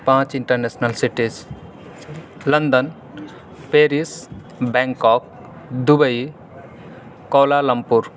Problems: none marked